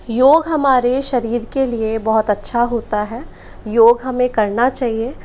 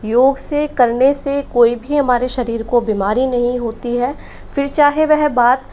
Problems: background sounds at intervals